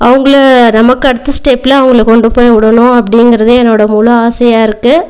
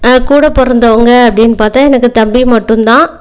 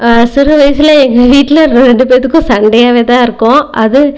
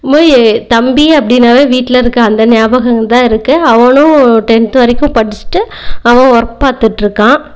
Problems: background conversations at intervals